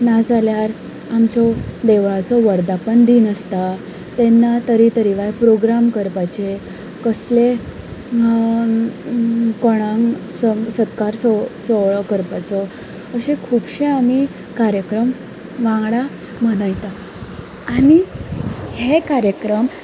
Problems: constant background noise